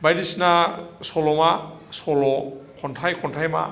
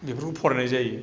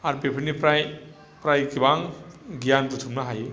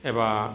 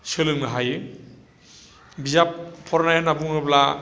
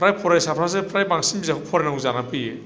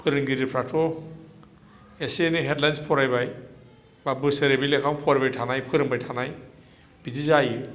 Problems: low volume